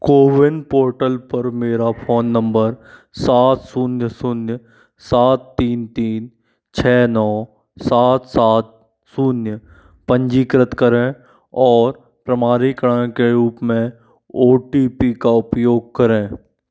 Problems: constant background noise